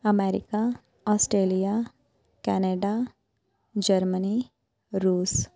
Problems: background conversations at intervals